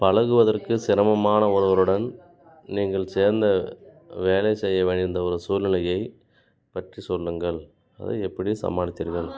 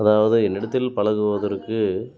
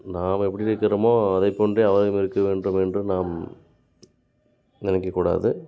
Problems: background conversations at intervals